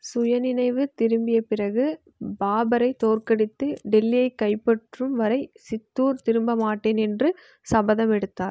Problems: none marked